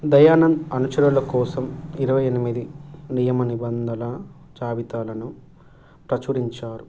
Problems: low volume